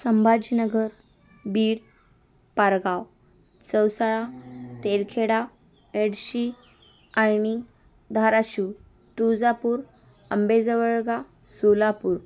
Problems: constant background noise, background conversations at intervals